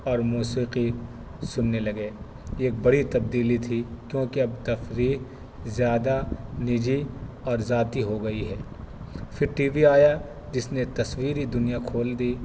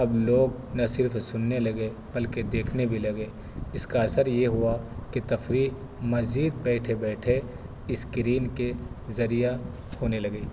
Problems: constant background noise